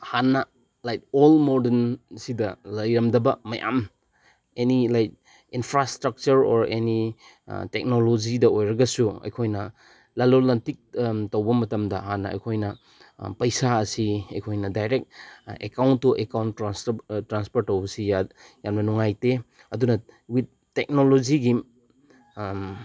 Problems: background sounds at intervals